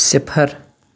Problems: none marked